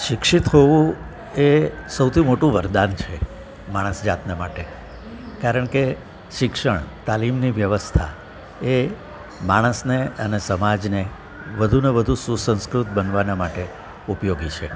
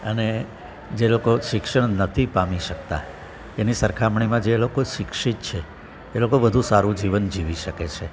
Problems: background sounds at intervals, continuous background conversations